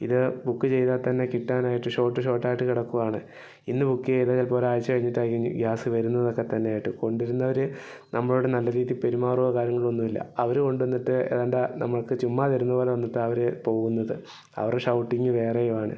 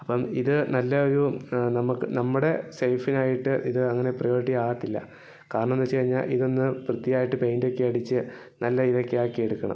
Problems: low volume